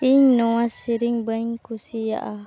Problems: background conversations at intervals